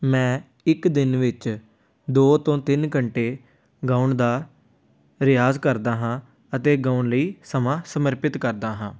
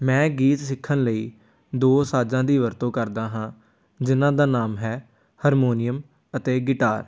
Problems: none marked